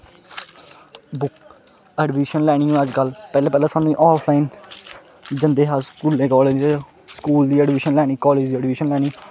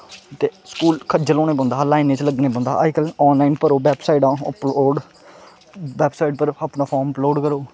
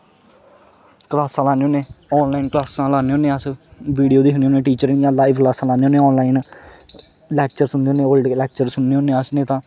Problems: constant background noise